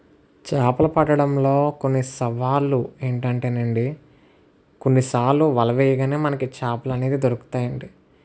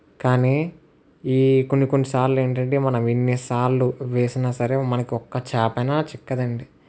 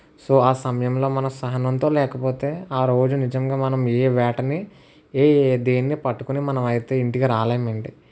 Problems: constant background noise